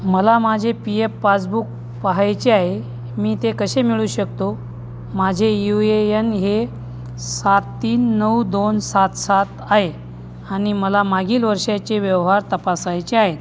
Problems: constant background noise, background conversations at intervals